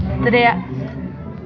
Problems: constant background noise